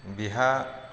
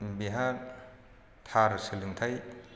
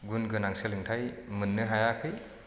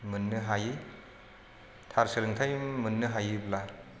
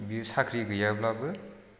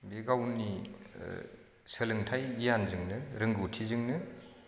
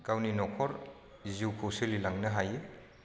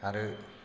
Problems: constant background noise